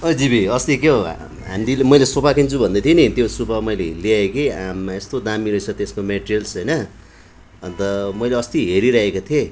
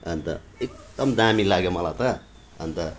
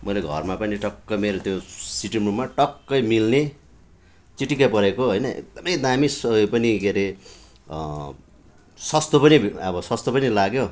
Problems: none marked